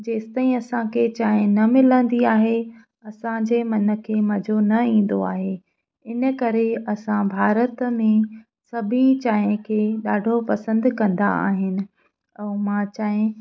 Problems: none marked